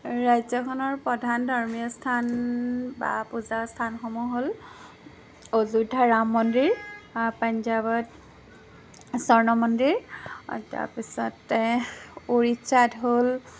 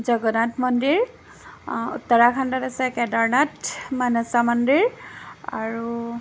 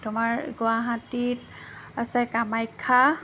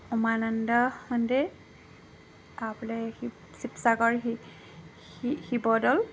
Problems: constant background noise